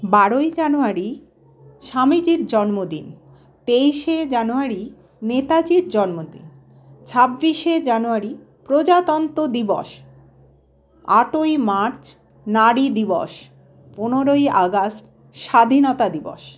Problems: none marked